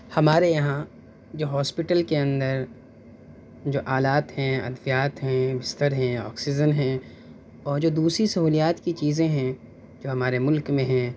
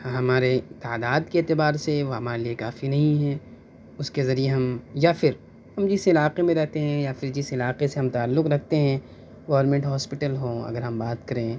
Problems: none marked